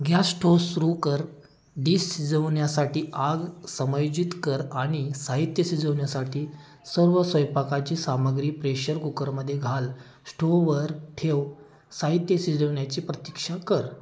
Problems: background sounds at intervals